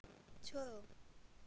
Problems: none marked